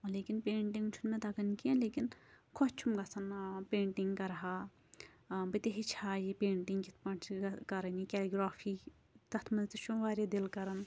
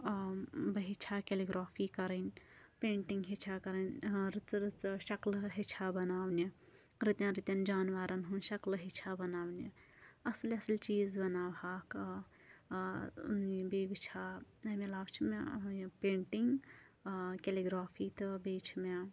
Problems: constant background noise